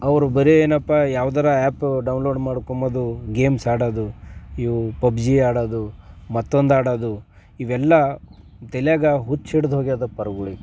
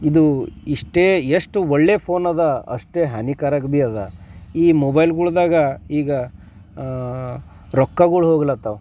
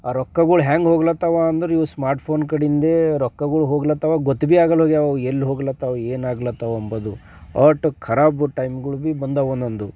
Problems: none marked